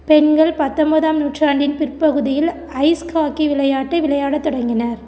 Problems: none marked